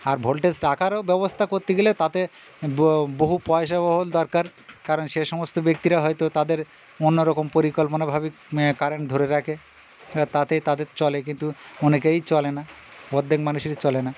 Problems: constant background noise, continuous background conversations